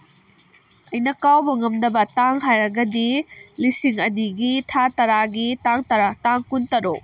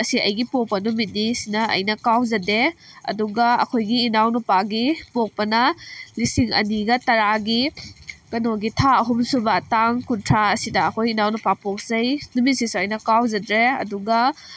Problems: constant background noise